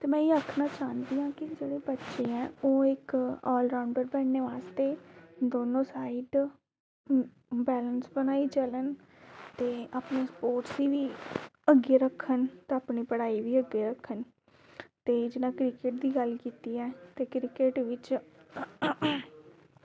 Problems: constant background noise